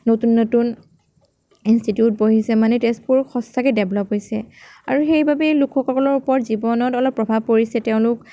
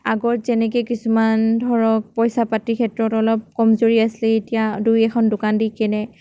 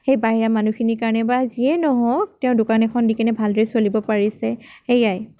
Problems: none marked